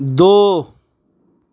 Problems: constant background noise